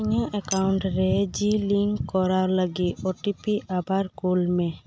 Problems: none marked